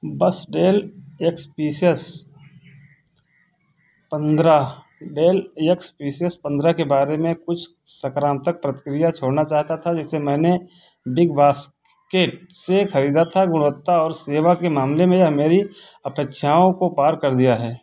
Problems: constant background noise